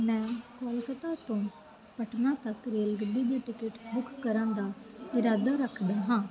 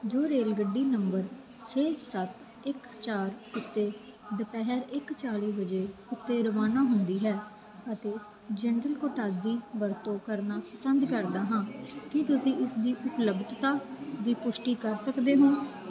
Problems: constant background noise